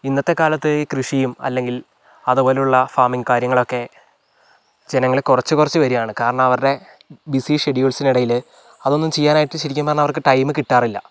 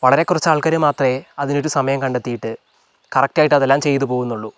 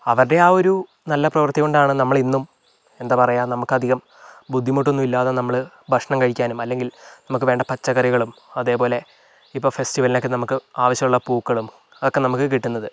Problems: none marked